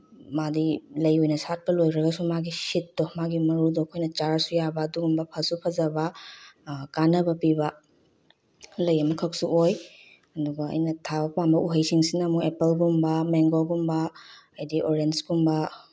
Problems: none marked